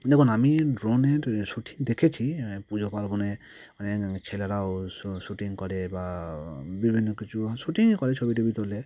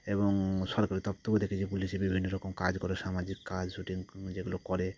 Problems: constant background noise